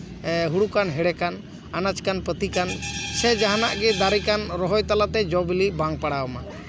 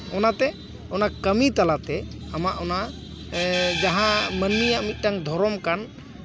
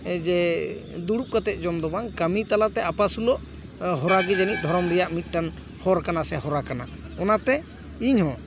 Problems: continuous background conversations